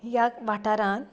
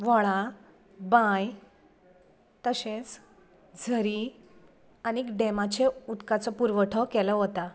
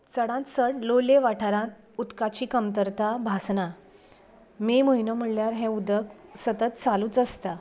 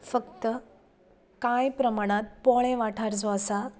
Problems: constant background noise